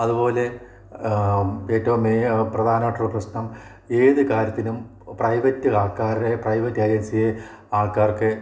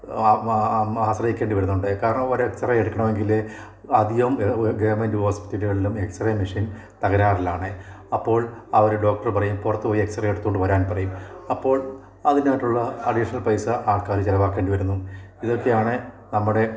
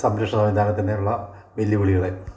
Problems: none marked